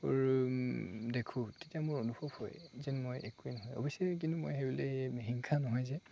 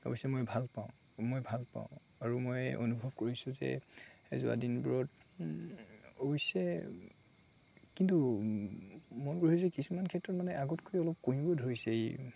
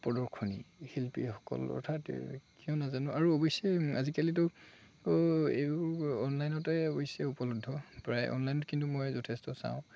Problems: constant background noise, background conversations at intervals